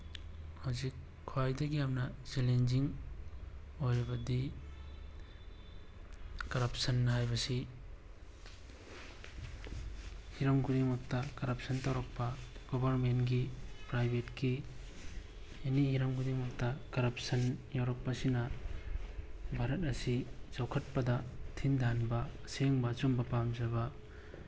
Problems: background sounds at intervals